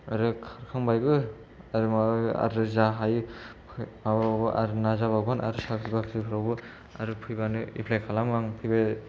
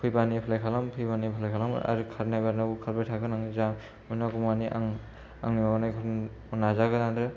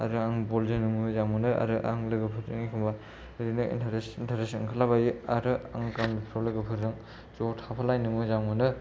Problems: low volume